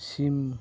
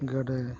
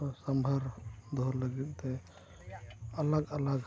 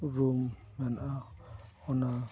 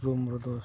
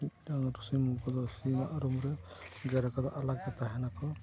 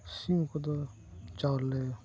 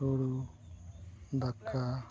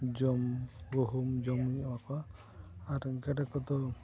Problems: background sounds at intervals, continuous background conversations, low volume